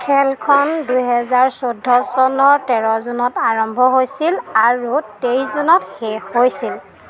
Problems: none marked